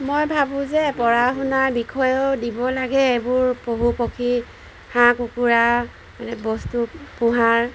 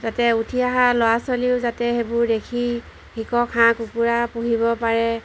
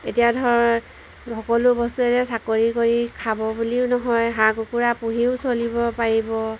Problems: background sounds at intervals